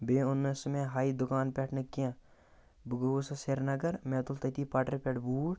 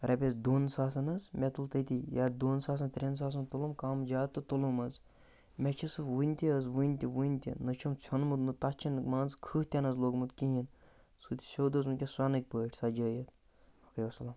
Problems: none marked